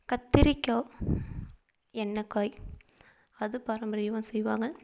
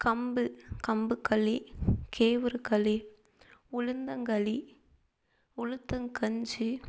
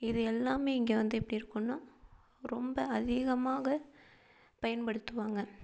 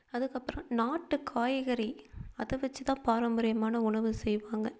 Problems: background sounds at intervals, low volume